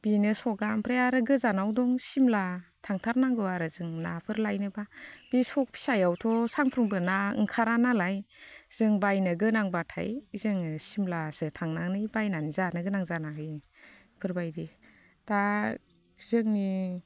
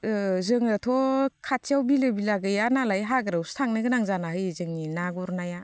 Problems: constant background noise